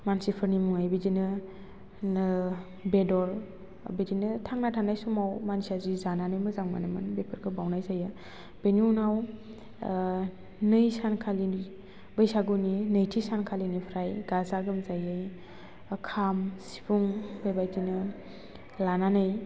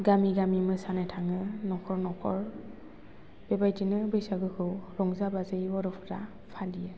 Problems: constant background noise